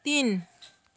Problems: background sounds at intervals